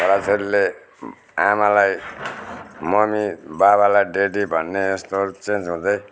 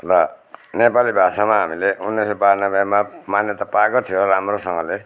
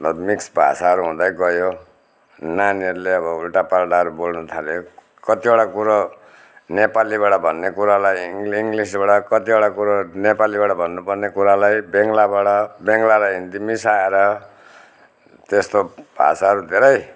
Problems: none marked